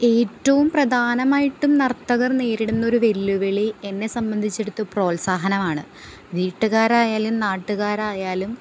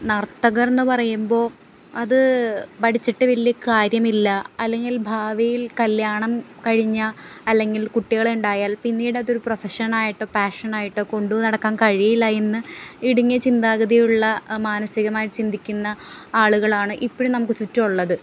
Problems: background sounds at intervals